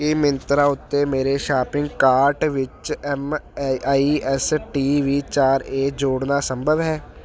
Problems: none marked